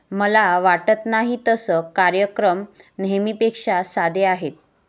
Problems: none marked